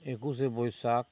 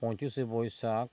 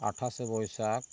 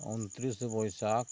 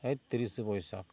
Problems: constant background noise